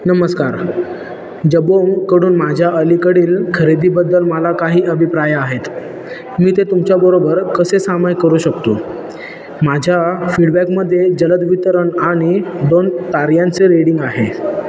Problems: constant background noise, background conversations at intervals